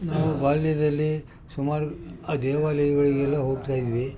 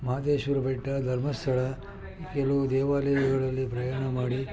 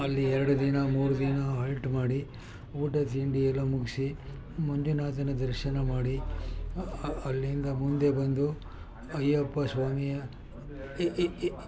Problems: continuous background conversations